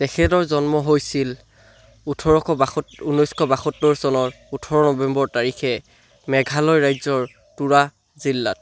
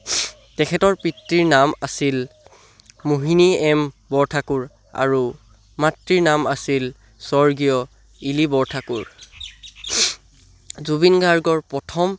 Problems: background sounds at intervals